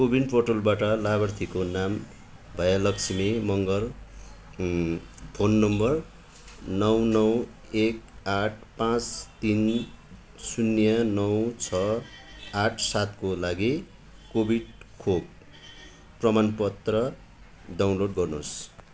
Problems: constant background noise